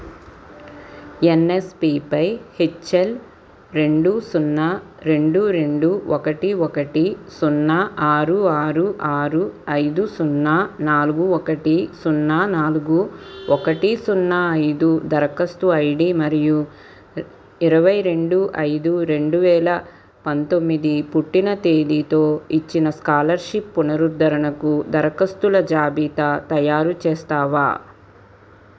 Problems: background sounds at intervals